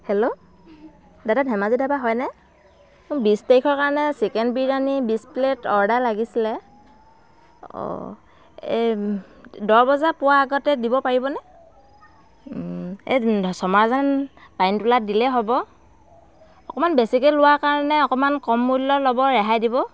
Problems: none marked